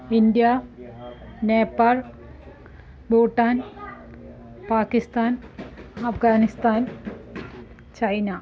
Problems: continuous background conversations